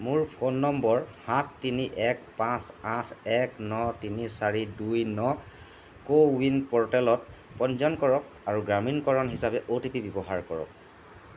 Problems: none marked